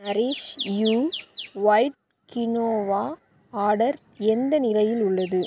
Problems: none marked